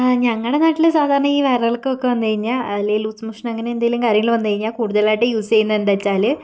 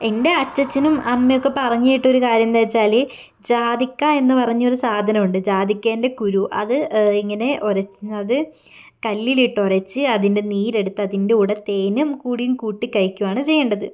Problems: none marked